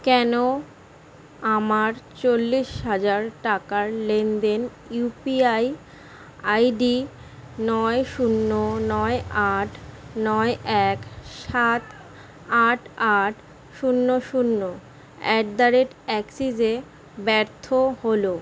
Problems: constant background noise